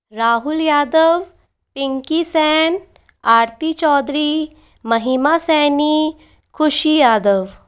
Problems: none marked